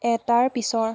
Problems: constant background noise